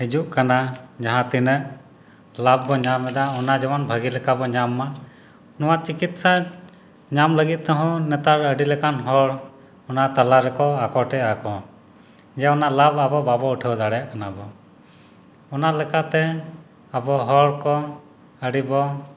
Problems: background sounds at intervals